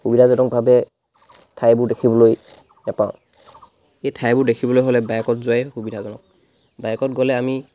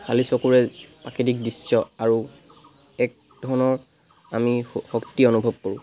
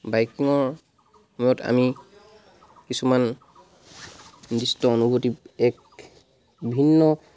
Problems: background sounds at intervals